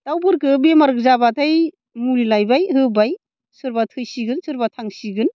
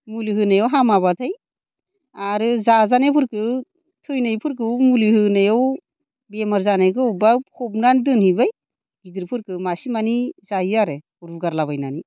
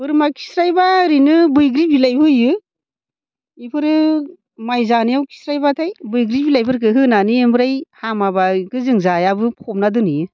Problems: none marked